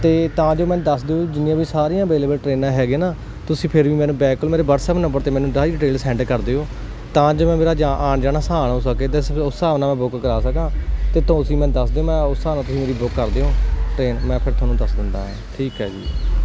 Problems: none marked